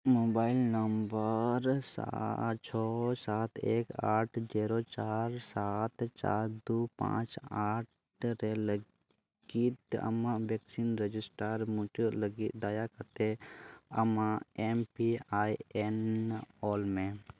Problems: none marked